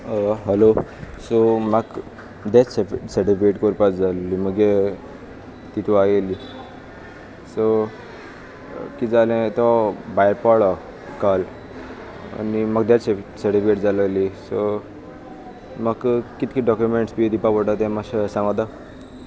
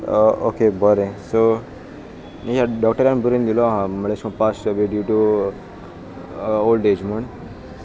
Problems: constant background noise